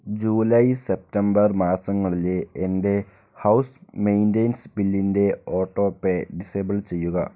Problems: low volume